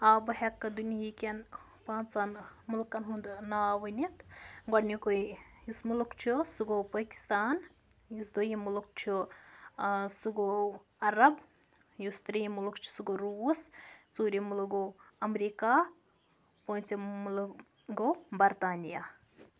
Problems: background sounds at intervals